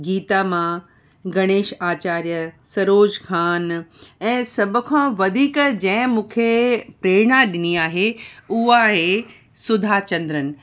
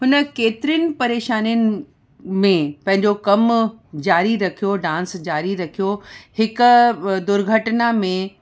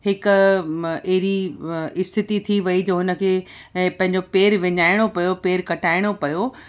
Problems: none marked